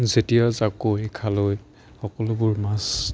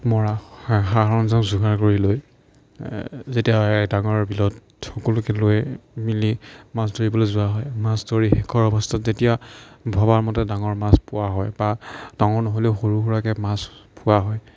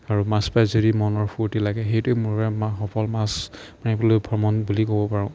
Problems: none marked